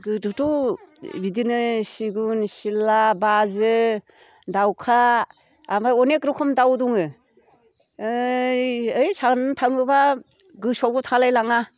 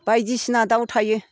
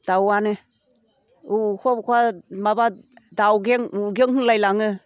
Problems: none marked